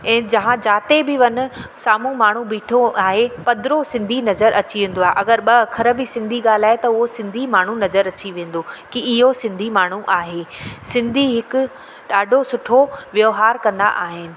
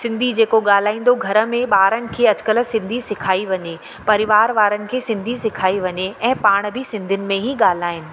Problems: constant background noise, echo